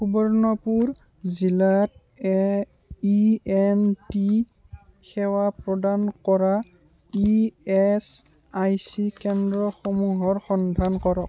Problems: continuous background conversations